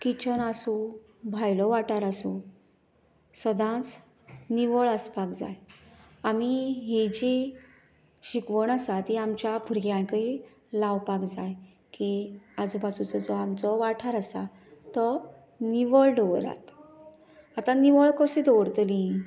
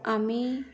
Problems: background sounds at intervals